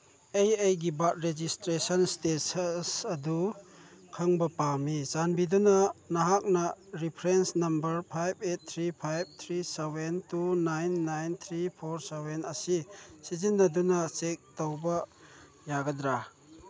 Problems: background conversations at intervals